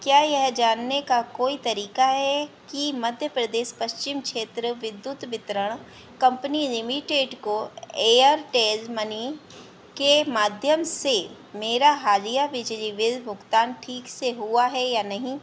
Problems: none marked